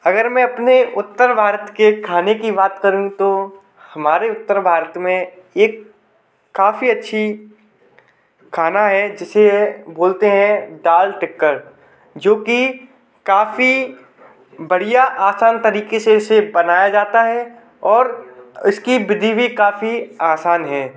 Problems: background sounds at intervals